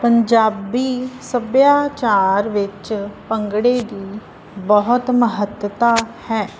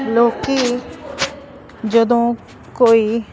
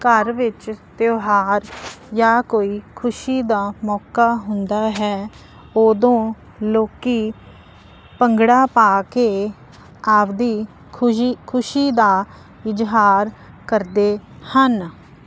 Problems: none marked